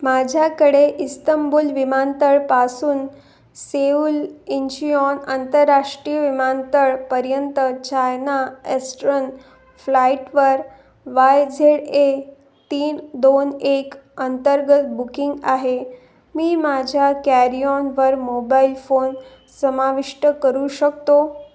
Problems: none marked